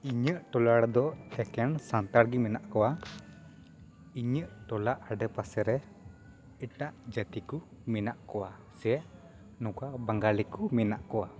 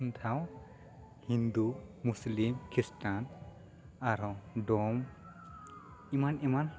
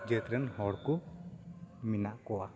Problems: constant background noise, continuous background conversations